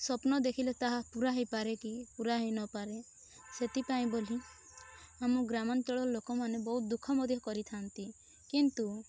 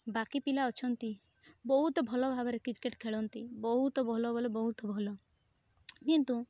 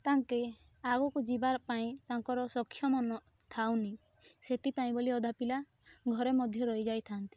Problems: none marked